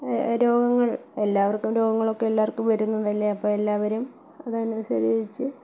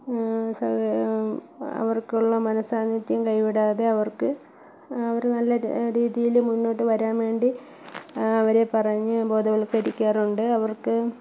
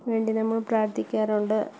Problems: echo, low volume